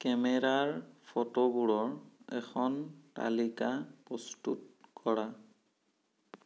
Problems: none marked